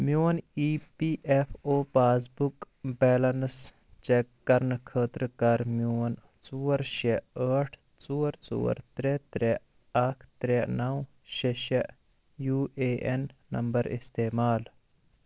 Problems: constant background noise